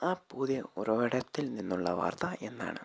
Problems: low volume